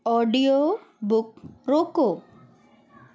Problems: constant background noise